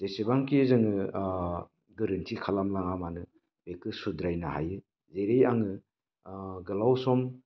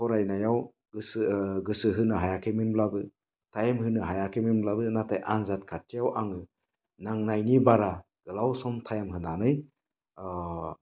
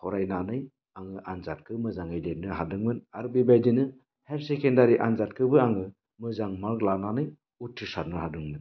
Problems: none marked